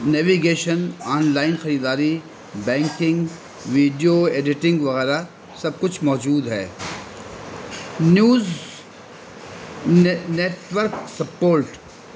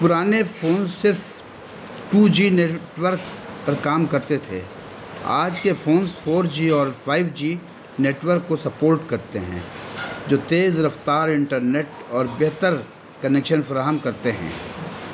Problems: constant background noise